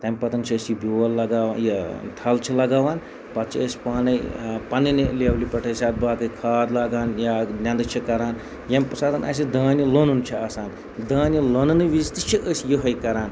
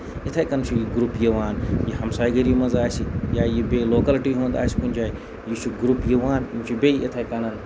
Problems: background sounds at intervals